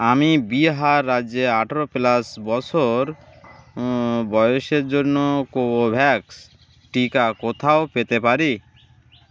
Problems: constant background noise